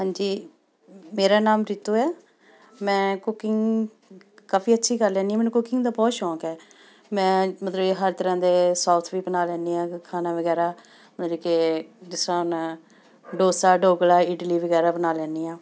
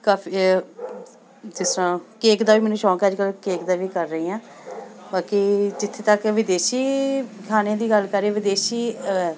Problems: constant background noise, continuous background conversations